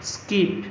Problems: constant background noise, background conversations at intervals